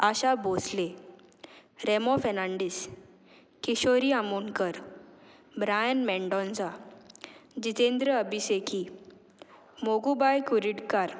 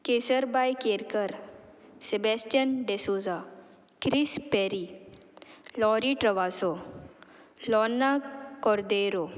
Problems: background sounds at intervals